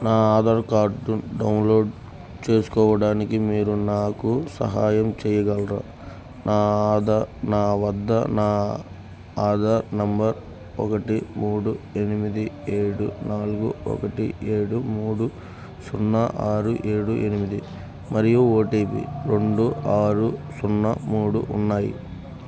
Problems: constant background noise